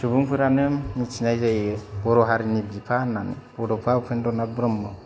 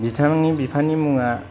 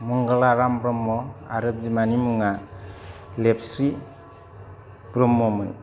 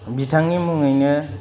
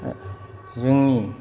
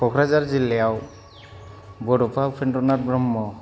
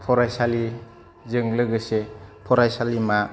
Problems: none marked